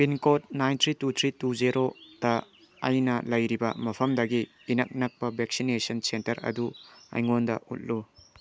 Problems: background sounds at intervals